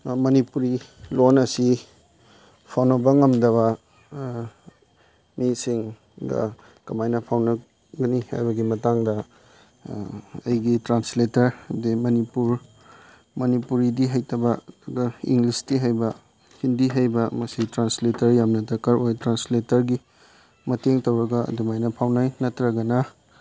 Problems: background sounds at intervals